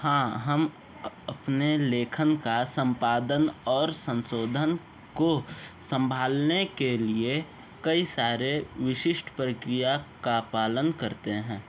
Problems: constant background noise